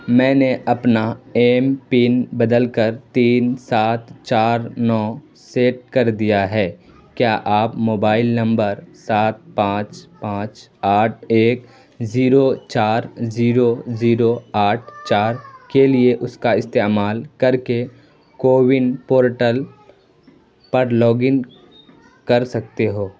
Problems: constant background noise